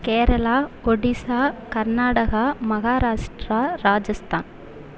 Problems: constant background noise